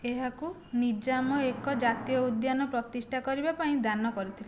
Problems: background sounds at intervals